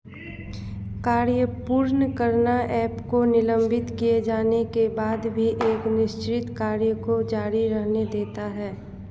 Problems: none marked